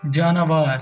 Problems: constant background noise